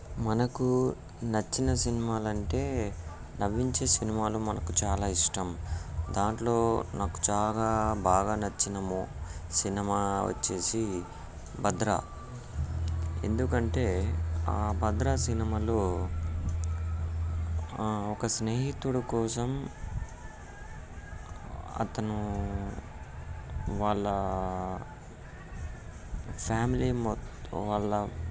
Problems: background sounds at intervals